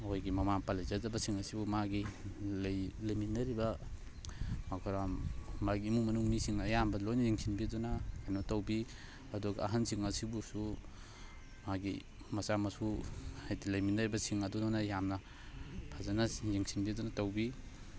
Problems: constant background noise, background conversations at intervals